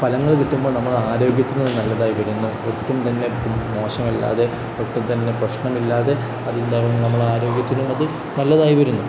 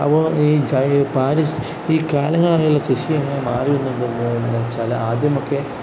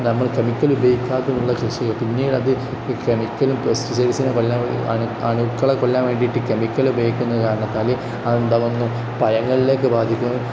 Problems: none marked